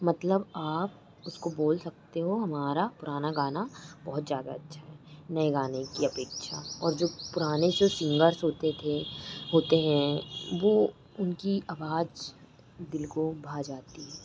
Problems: constant background noise